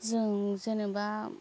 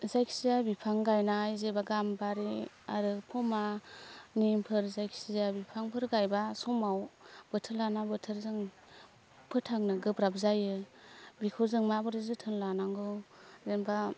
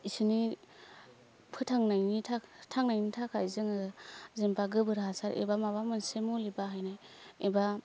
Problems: none marked